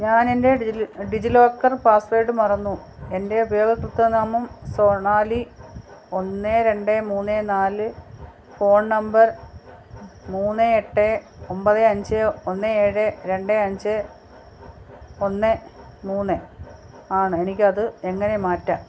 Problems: constant background noise, low volume